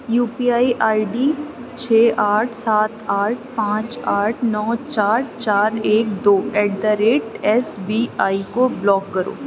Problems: none marked